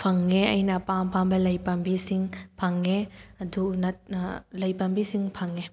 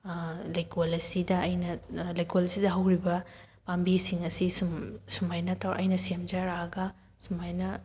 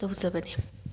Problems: background sounds at intervals